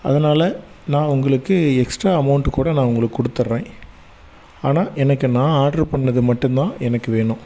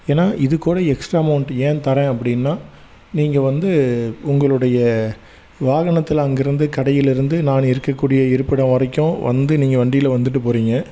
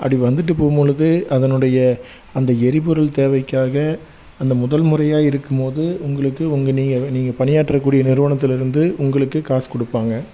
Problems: none marked